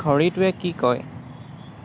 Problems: continuous background conversations